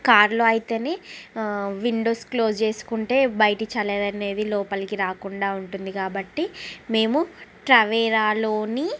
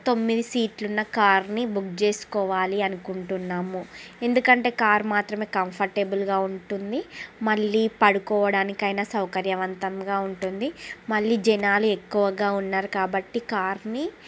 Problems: constant background noise